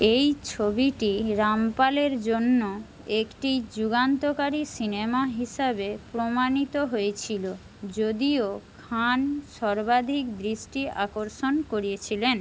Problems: constant background noise